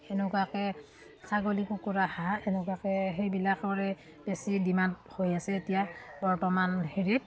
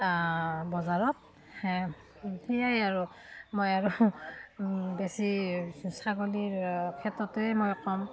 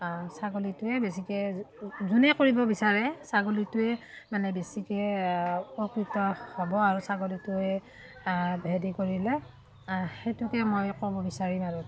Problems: none marked